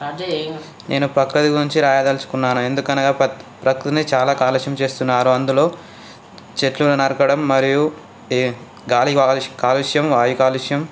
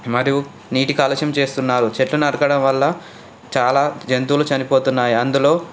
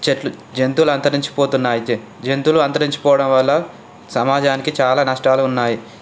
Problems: constant background noise, background conversations at intervals